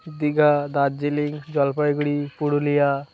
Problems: constant background noise, continuous background conversations